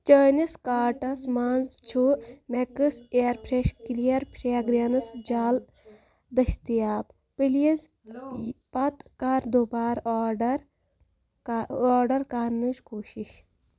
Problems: background sounds at intervals, background conversations at intervals